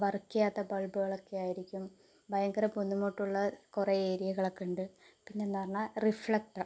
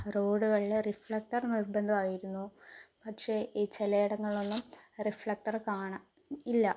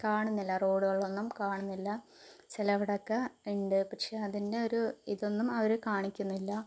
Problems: low volume